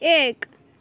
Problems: none marked